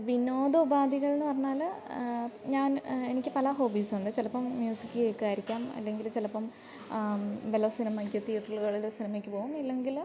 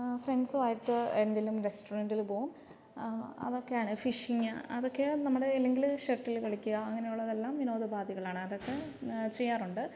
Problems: low volume